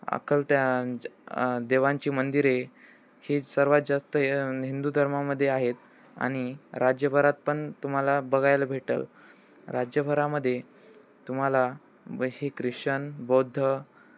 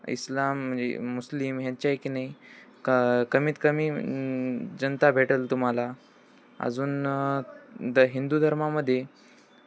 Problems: none marked